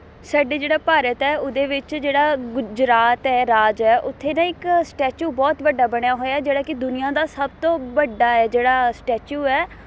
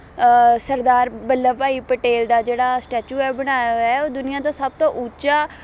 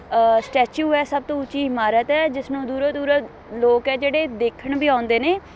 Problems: constant background noise